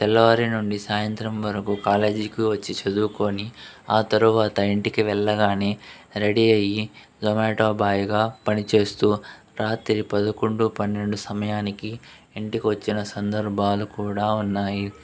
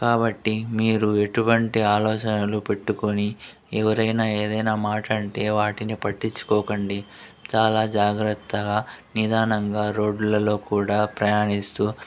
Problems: constant background noise, background conversations at intervals